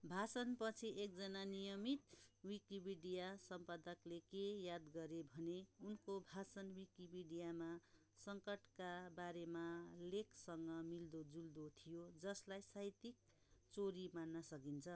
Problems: background sounds at intervals